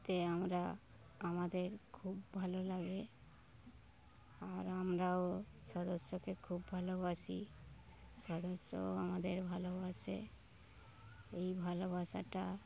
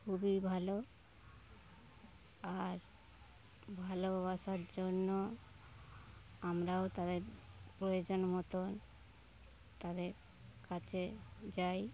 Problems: none marked